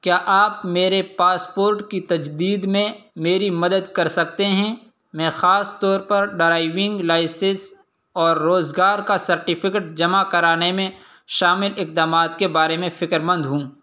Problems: constant background noise